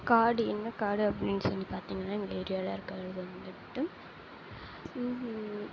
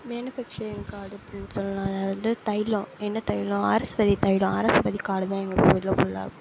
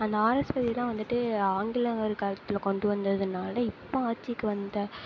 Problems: low volume